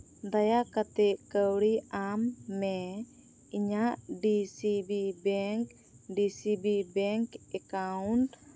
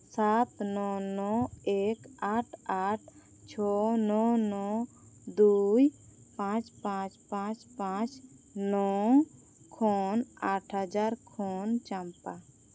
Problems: constant background noise